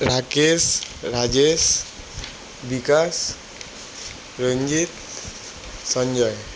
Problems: constant background noise